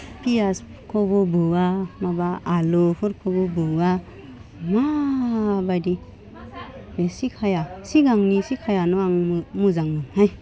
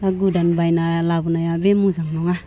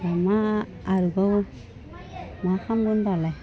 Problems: none marked